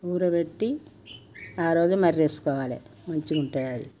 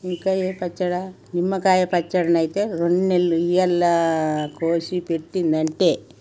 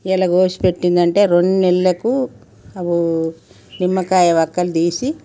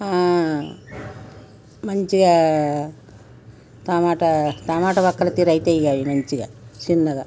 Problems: background sounds at intervals